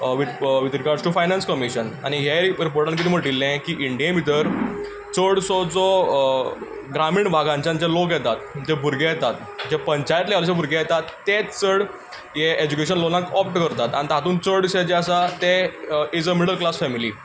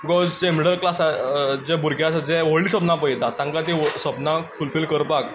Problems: constant background noise